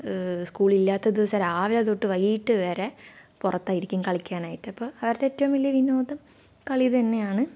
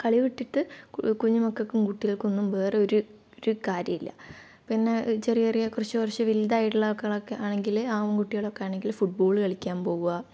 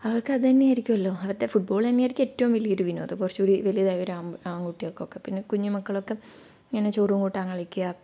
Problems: low volume